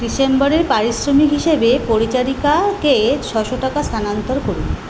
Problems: constant background noise